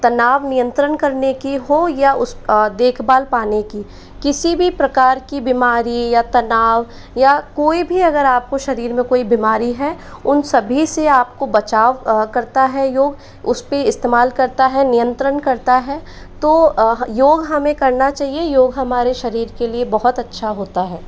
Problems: background sounds at intervals